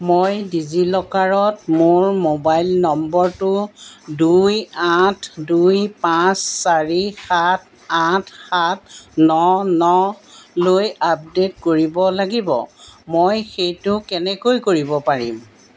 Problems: background sounds at intervals